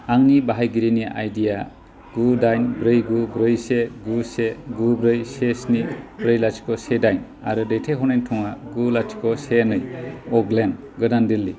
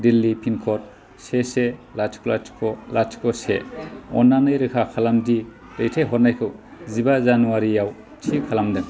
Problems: constant background noise